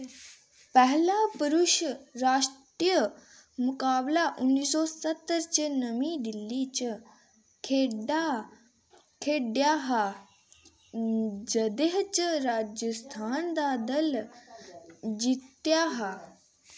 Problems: constant background noise